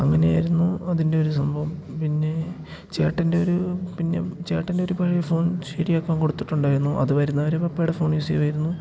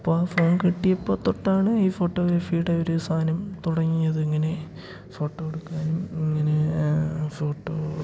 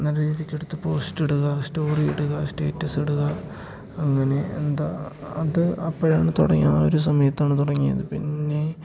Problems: none marked